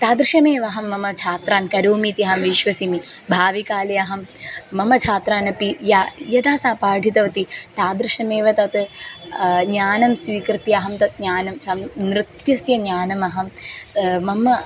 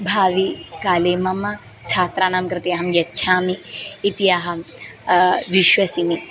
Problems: background sounds at intervals